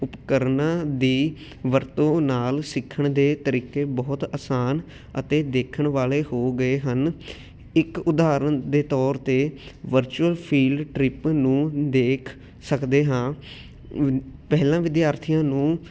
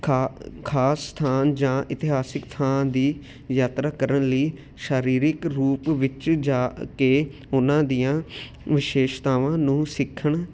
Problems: none marked